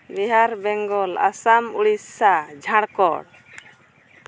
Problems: none marked